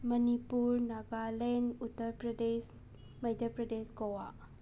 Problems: background sounds at intervals